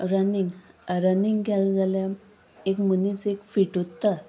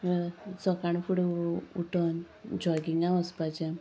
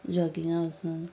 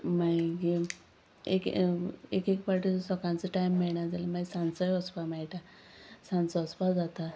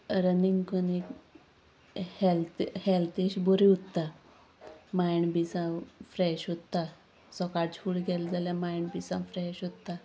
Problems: none marked